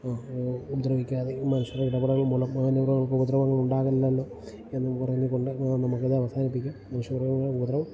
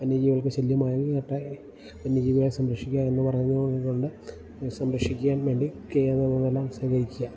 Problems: constant background noise, low volume